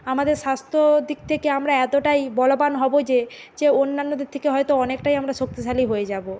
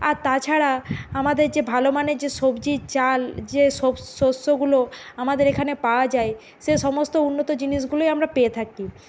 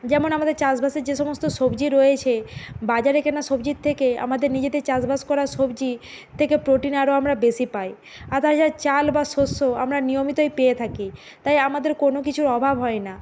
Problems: none marked